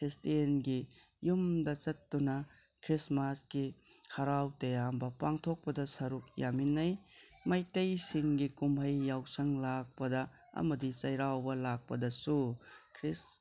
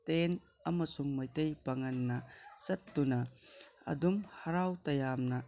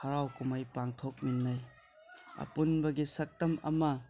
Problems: none marked